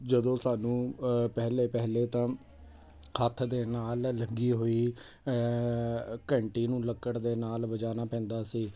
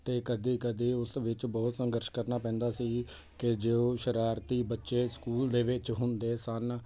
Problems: constant background noise